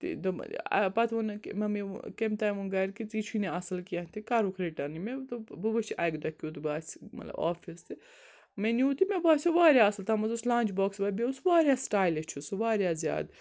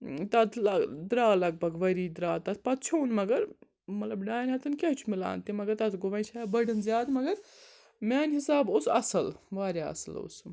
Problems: constant background noise